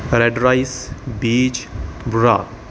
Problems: background sounds at intervals